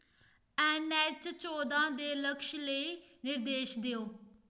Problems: none marked